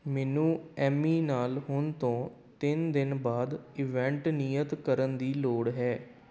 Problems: background sounds at intervals